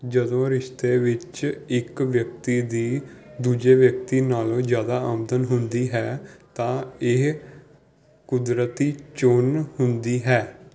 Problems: background sounds at intervals